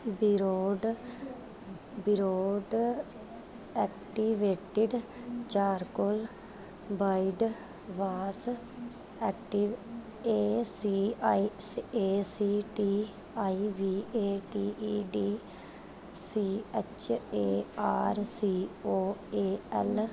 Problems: background sounds at intervals